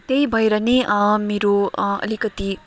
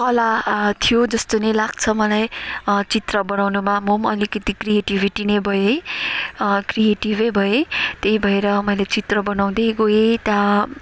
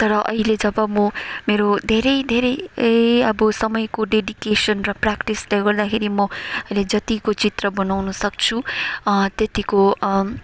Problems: constant background noise